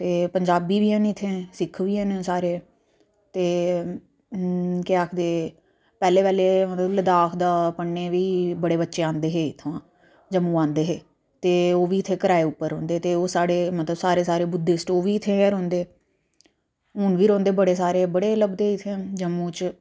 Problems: low volume